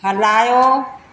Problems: constant background noise, echo